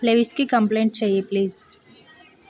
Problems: constant background noise